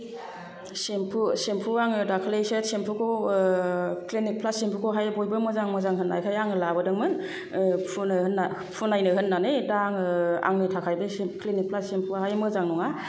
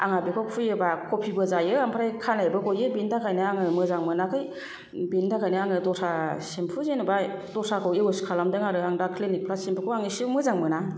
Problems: none marked